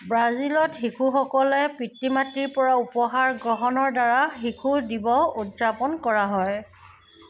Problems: background sounds at intervals